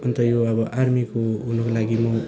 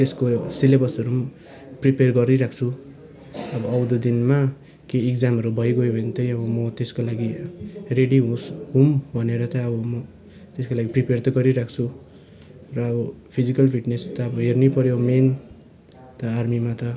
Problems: constant background noise, continuous background conversations